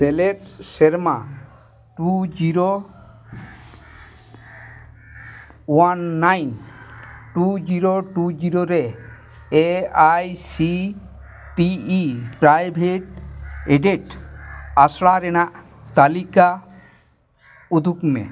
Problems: constant background noise